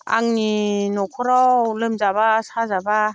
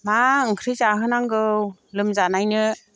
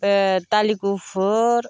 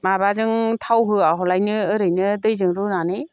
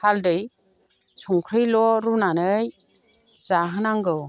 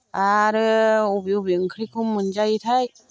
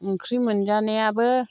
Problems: none marked